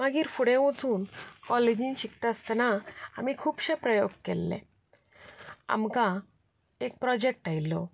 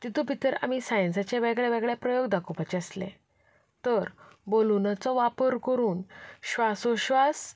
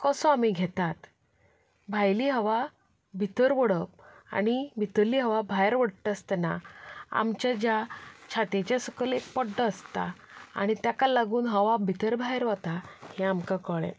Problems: background sounds at intervals